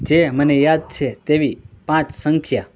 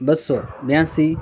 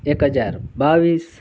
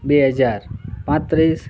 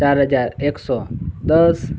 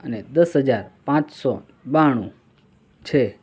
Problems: none marked